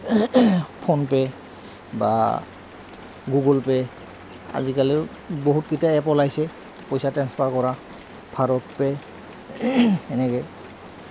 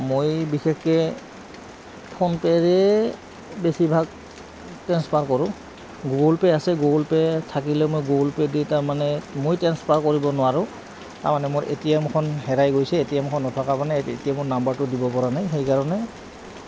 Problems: constant background noise, background conversations at intervals